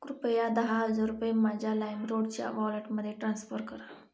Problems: none marked